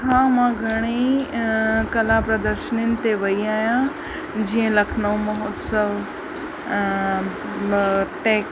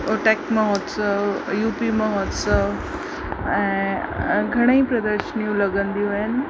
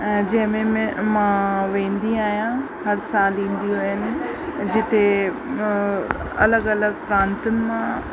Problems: constant background noise